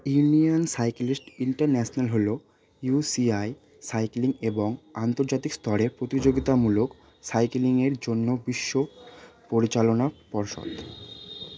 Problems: constant background noise, background conversations at intervals